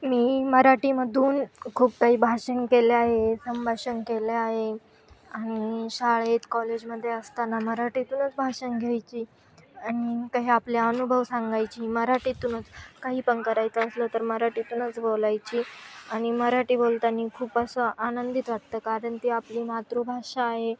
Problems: background sounds at intervals, continuous background conversations